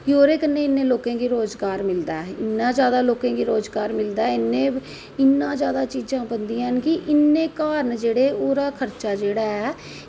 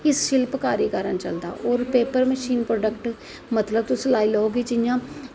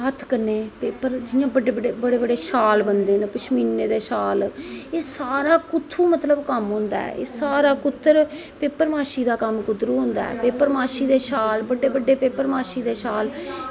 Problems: echo